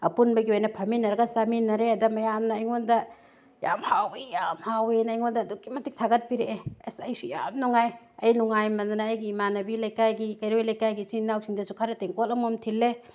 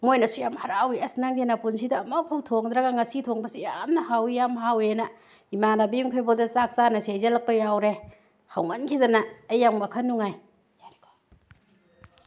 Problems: background conversations at intervals